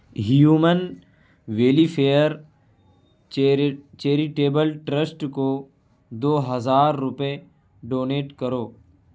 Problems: constant background noise